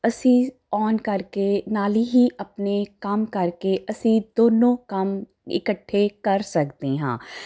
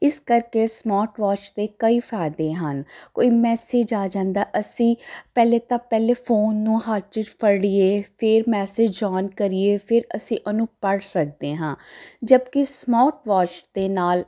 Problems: none marked